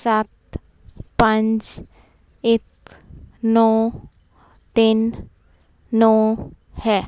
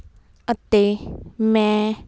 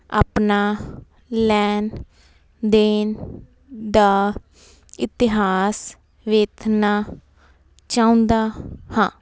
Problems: none marked